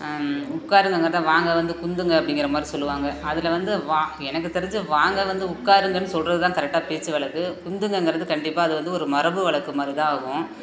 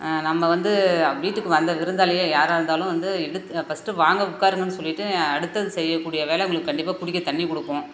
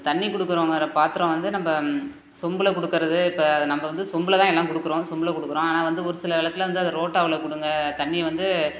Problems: none marked